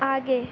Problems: constant background noise